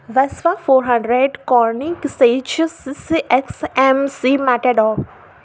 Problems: none marked